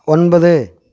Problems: none marked